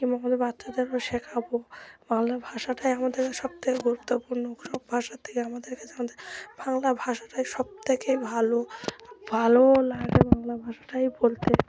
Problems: constant background noise, continuous background conversations